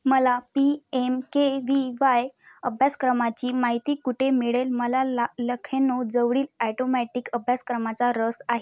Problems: constant background noise